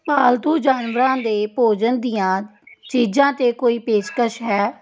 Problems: background sounds at intervals